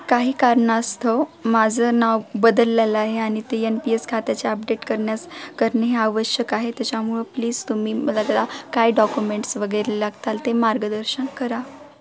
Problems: constant background noise, background conversations at intervals